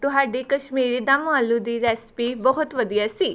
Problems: background sounds at intervals